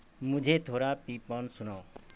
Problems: constant background noise